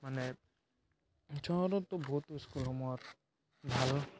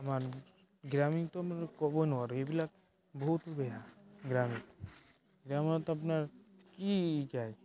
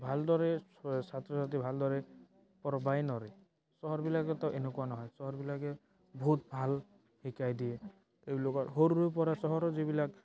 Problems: background sounds at intervals, background conversations at intervals